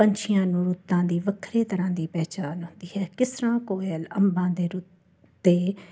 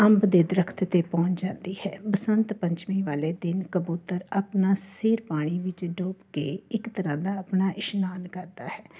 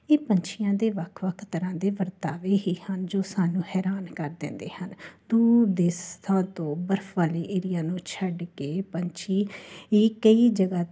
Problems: constant background noise